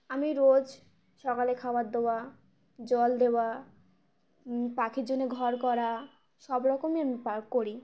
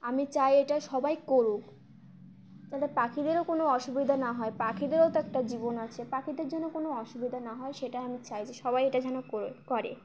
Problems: constant background noise